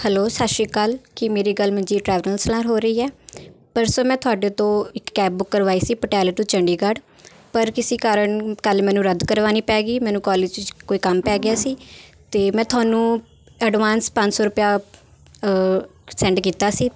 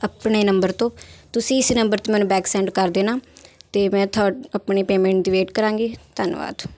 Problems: none marked